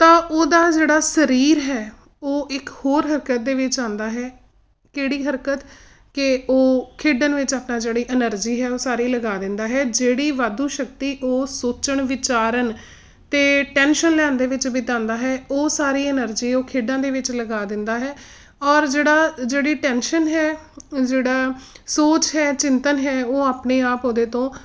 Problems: none marked